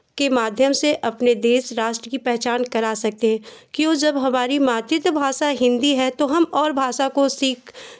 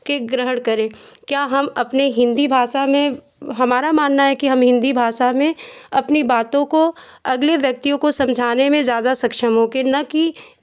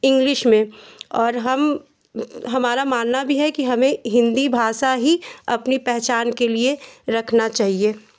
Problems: constant background noise